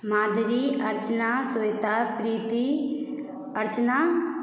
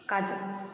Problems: none marked